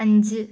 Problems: none marked